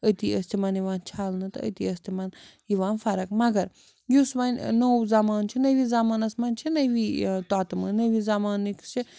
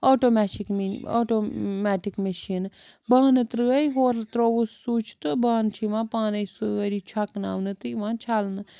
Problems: background sounds at intervals